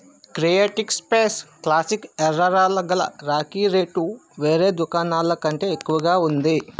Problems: constant background noise